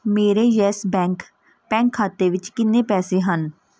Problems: background sounds at intervals